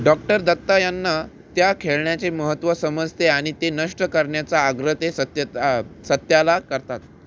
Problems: constant background noise